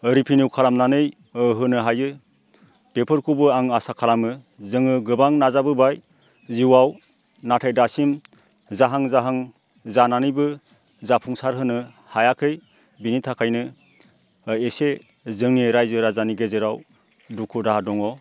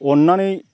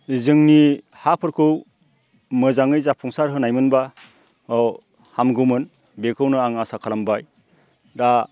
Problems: constant background noise